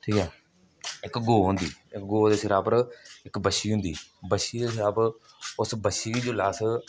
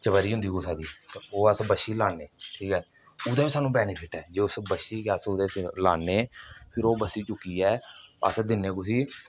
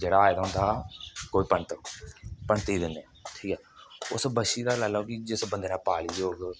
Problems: none marked